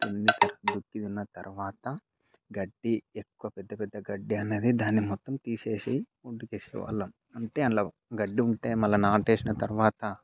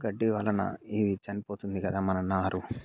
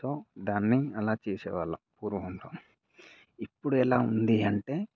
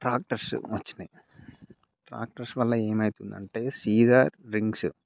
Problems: none marked